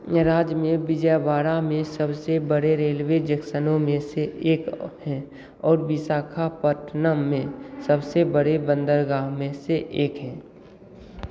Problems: constant background noise